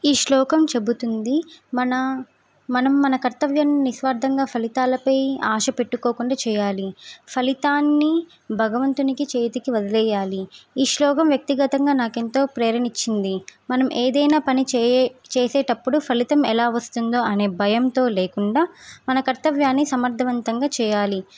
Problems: none marked